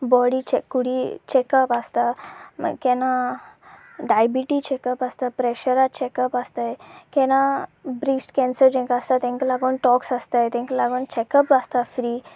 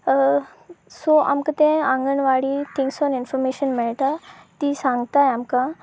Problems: constant background noise